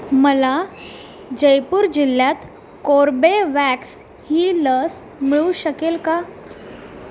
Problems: constant background noise